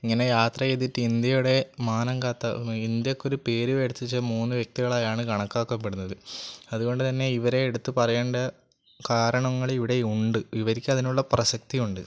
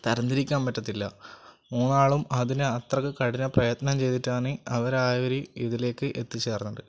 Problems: none marked